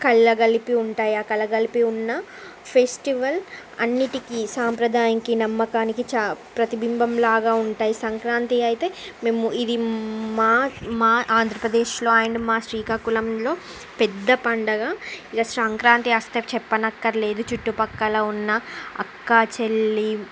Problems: background sounds at intervals